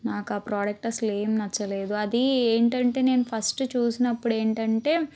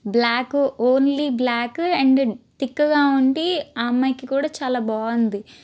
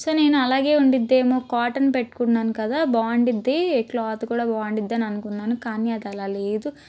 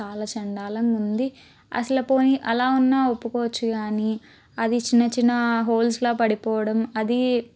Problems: constant background noise